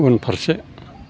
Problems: none marked